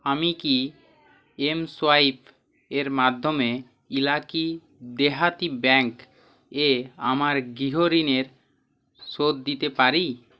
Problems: none marked